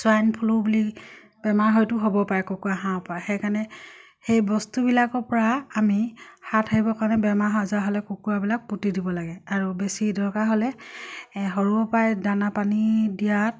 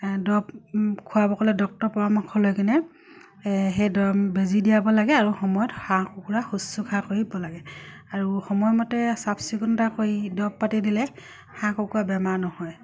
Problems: none marked